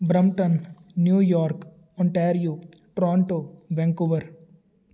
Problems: none marked